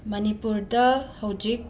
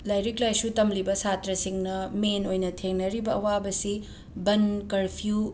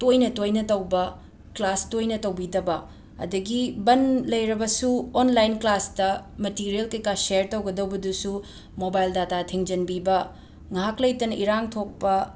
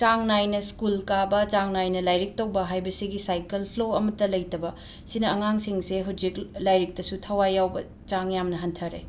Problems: background sounds at intervals